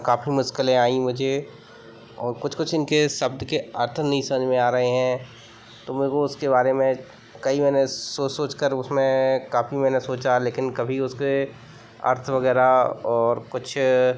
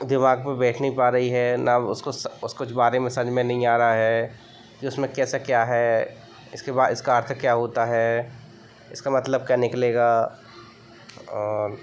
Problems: background sounds at intervals